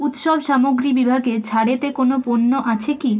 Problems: constant background noise, background conversations at intervals